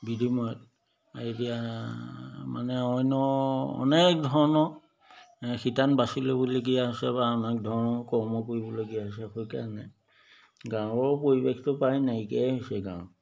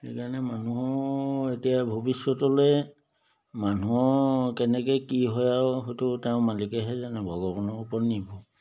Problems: none marked